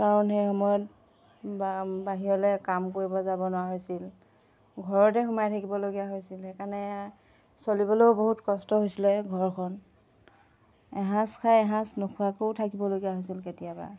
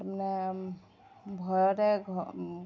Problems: none marked